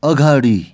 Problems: none marked